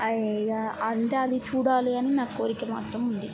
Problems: constant background noise